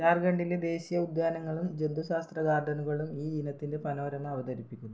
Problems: low volume